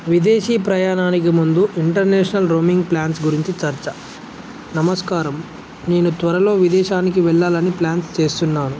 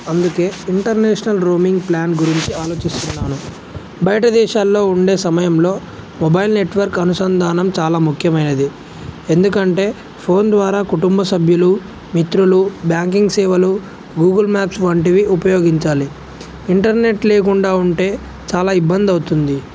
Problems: none marked